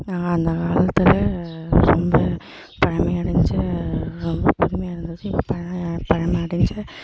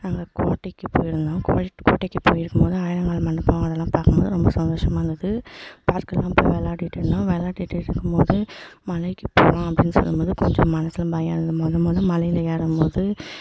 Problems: echo